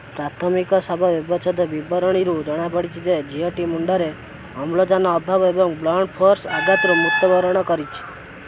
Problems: constant background noise